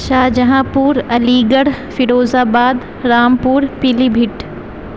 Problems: constant background noise